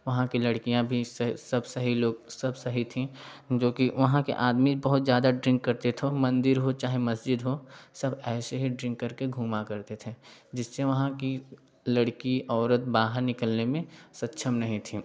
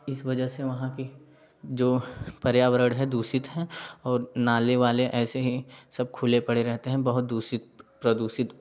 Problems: background sounds at intervals, background conversations at intervals